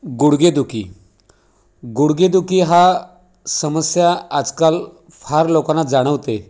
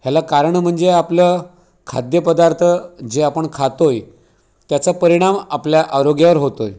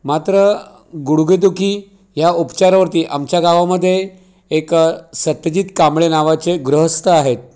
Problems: none marked